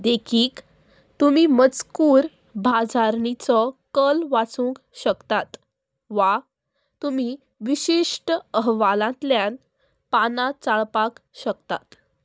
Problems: none marked